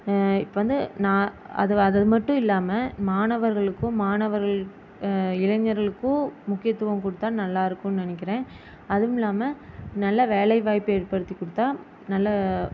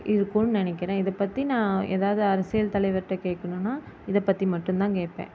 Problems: constant background noise